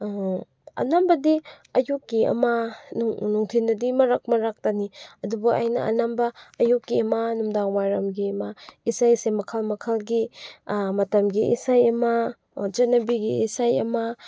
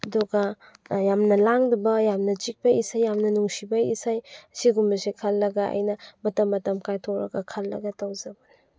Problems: none marked